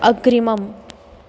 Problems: constant background noise